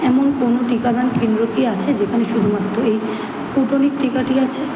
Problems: none marked